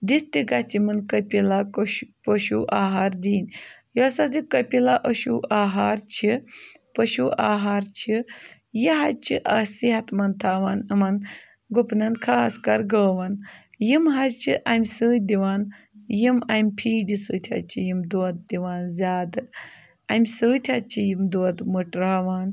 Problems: none marked